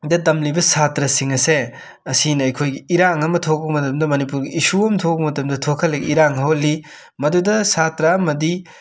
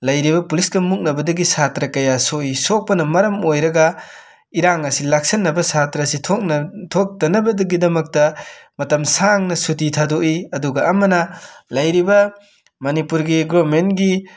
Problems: background sounds at intervals